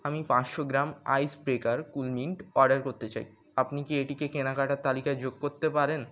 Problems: none marked